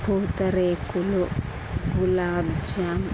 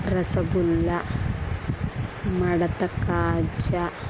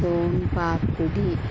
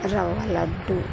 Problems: background sounds at intervals